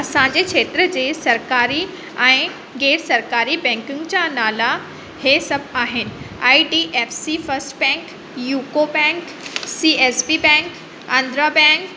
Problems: constant background noise, echo